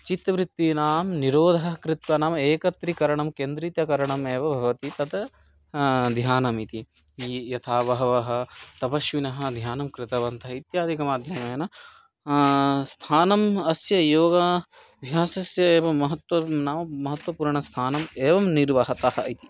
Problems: background sounds at intervals